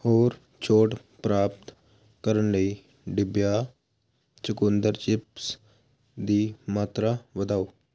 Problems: constant background noise